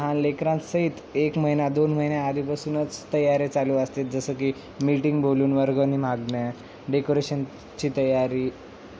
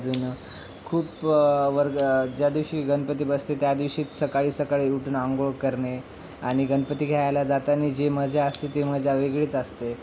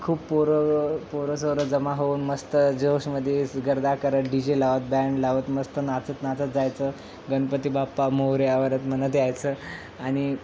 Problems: constant background noise, background conversations at intervals